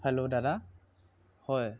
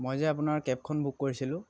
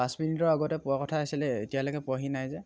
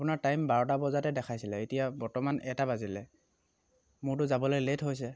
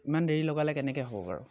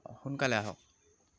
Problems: background sounds at intervals